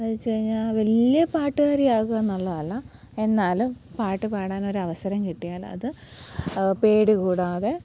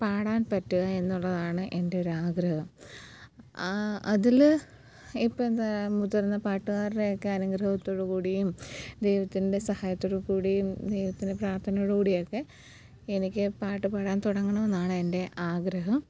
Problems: background sounds at intervals, low volume